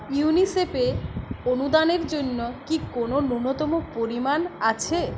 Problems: continuous background conversations